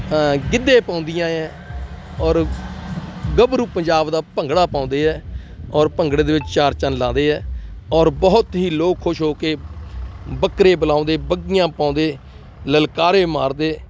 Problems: constant background noise, continuous background conversations